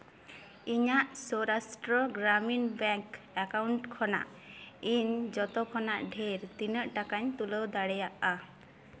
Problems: echo